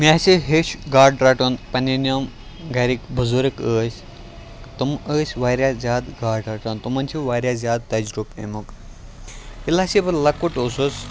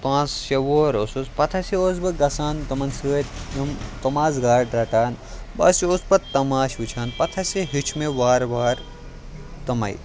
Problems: constant background noise